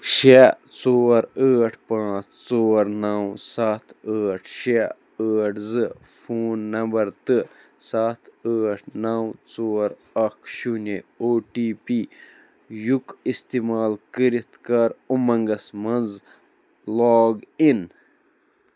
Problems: none marked